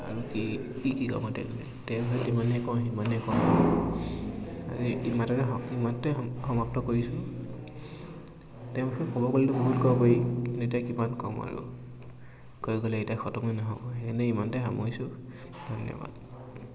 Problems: constant background noise